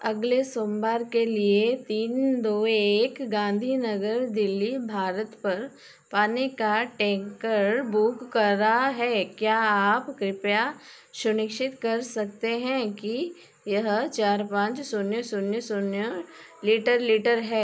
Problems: background sounds at intervals